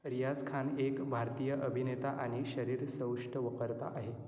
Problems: none marked